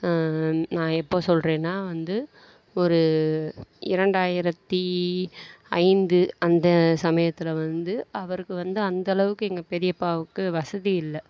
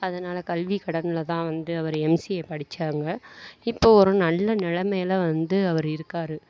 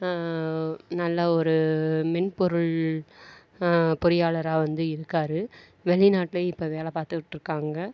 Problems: none marked